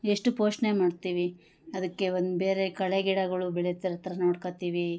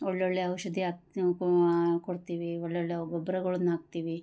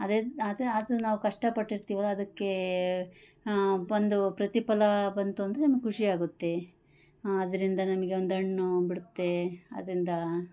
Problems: none marked